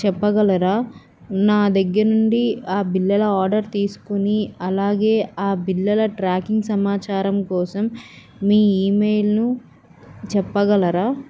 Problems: none marked